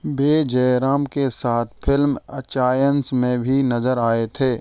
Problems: none marked